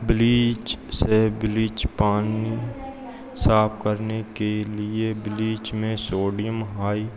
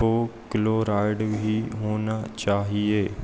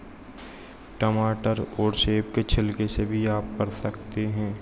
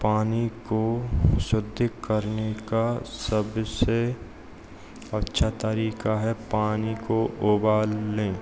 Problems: constant background noise